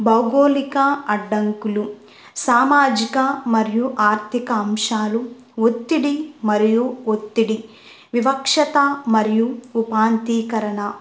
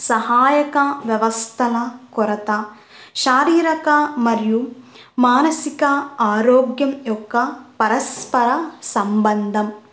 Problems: none marked